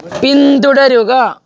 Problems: background conversations at intervals